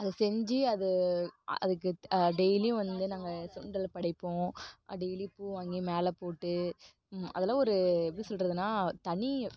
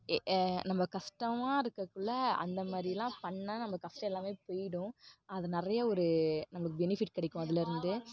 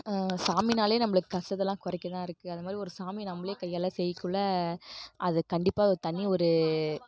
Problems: none marked